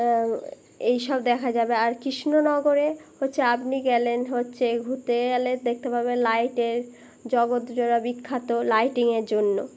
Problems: constant background noise